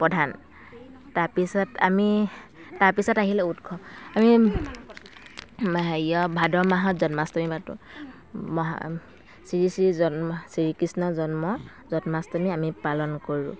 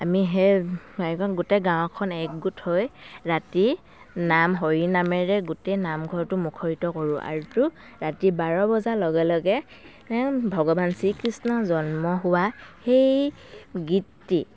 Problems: constant background noise, continuous background conversations